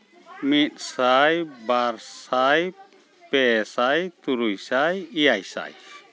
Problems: background sounds at intervals